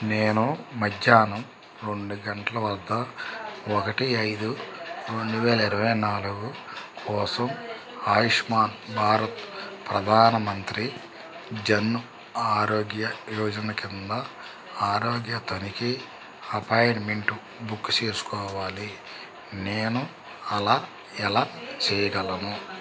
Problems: constant background noise